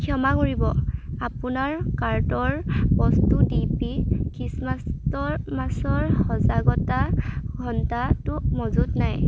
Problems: constant background noise